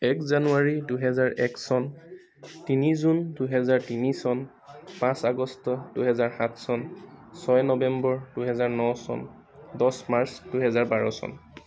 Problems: background sounds at intervals, continuous background conversations